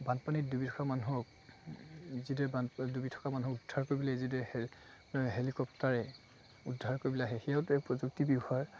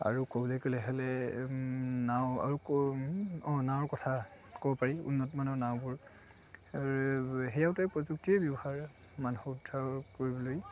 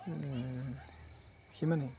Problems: constant background noise, background conversations at intervals